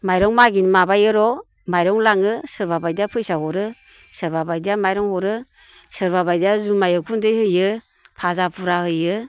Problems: constant background noise